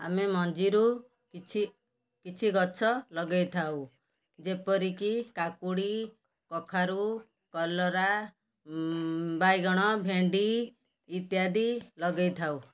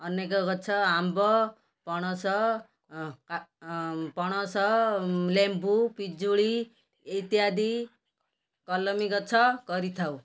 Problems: background sounds at intervals